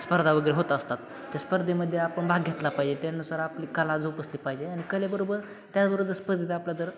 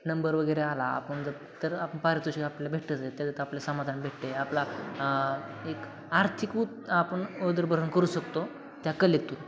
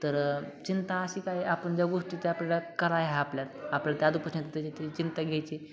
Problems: constant background noise, background conversations at intervals